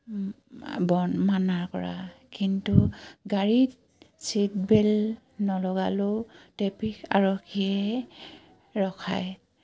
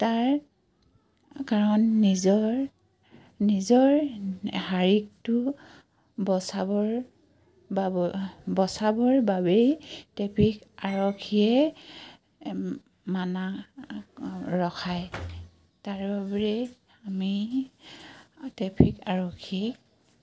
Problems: background sounds at intervals